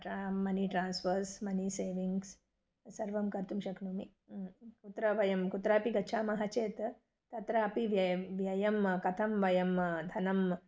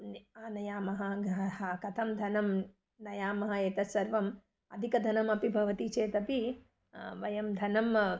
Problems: none marked